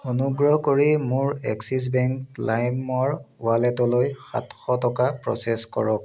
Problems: constant background noise